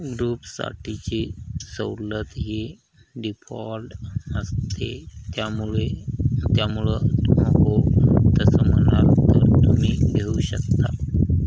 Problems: constant background noise